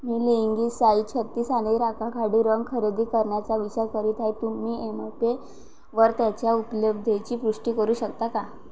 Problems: constant background noise